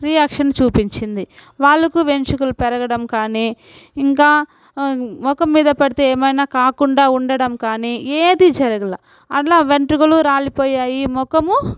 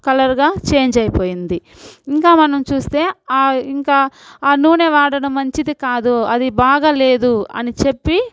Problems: background sounds at intervals